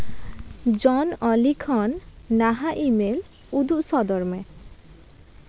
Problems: constant background noise